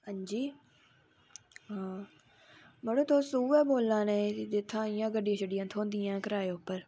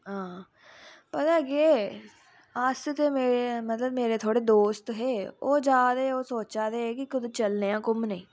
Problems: none marked